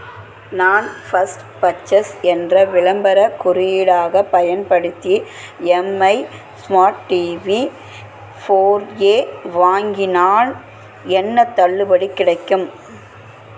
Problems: constant background noise